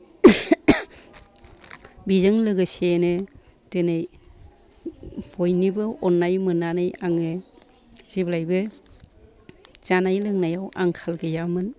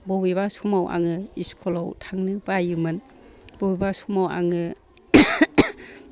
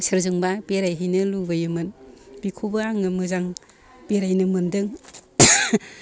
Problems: background sounds at intervals, continuous background conversations